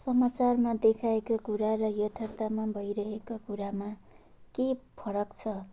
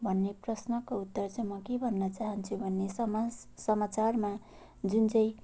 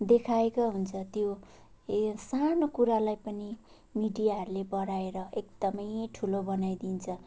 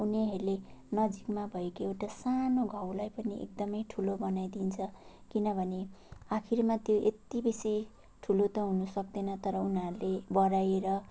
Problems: none marked